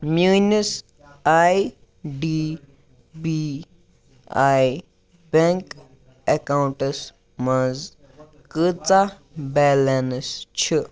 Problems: none marked